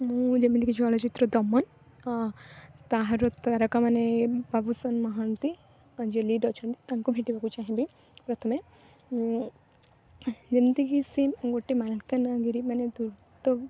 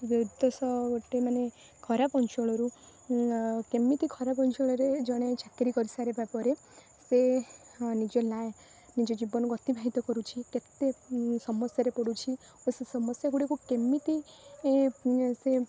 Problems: constant background noise